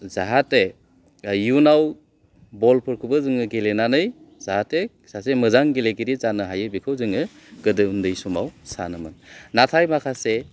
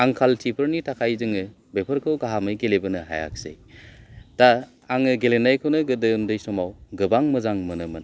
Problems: low volume